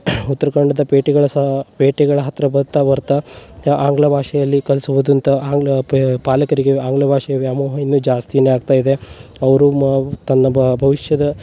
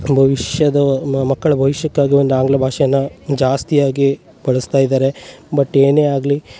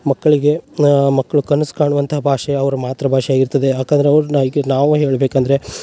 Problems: none marked